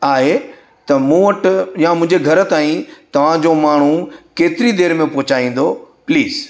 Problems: constant background noise